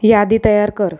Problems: none marked